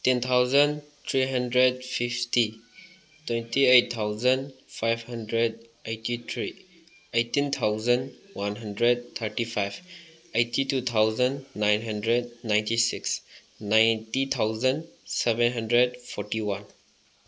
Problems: background sounds at intervals